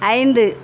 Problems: constant background noise